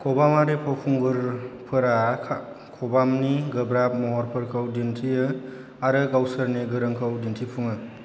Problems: constant background noise